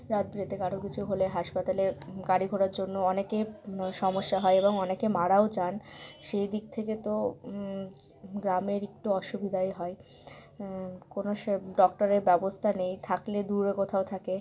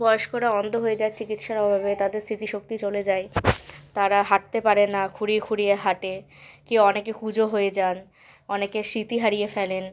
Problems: background sounds at intervals